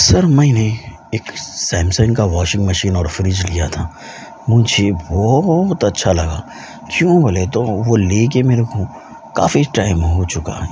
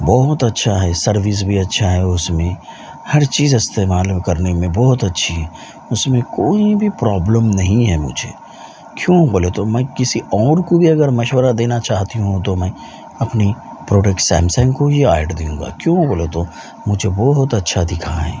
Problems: constant background noise